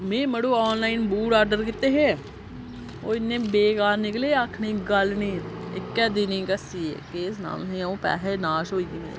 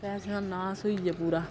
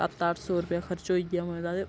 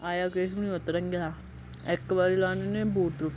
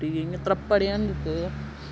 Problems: low volume